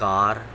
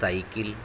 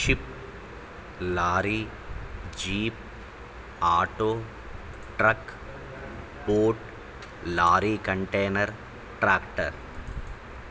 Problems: constant background noise